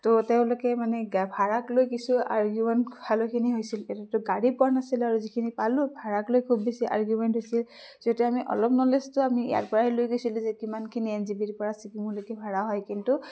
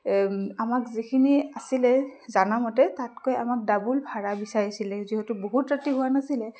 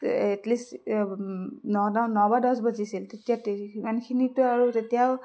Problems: constant background noise